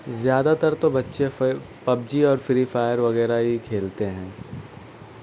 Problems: constant background noise